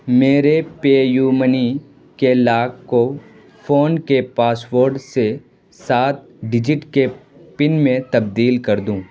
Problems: constant background noise